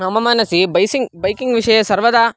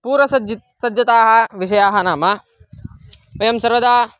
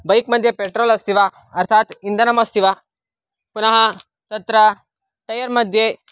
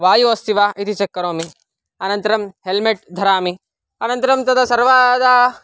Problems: none marked